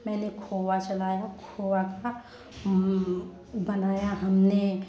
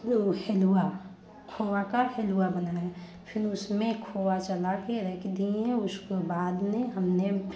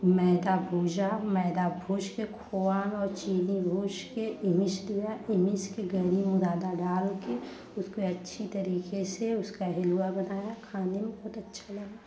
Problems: constant background noise, background conversations at intervals